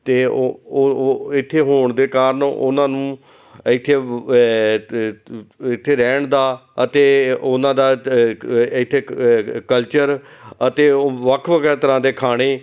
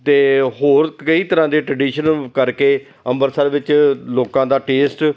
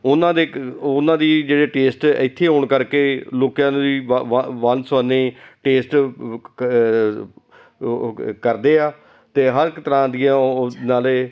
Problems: constant background noise, continuous background conversations